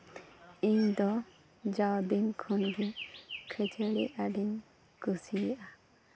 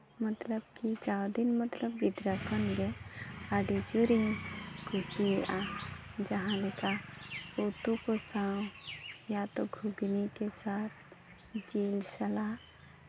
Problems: background sounds at intervals, background conversations at intervals